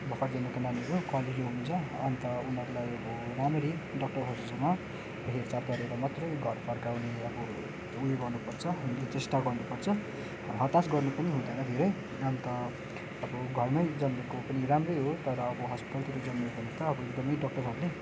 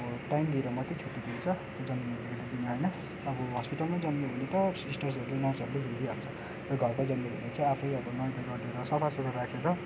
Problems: background sounds at intervals